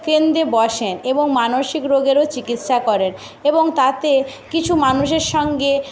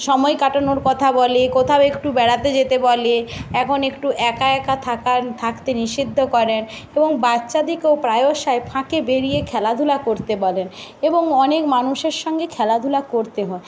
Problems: none marked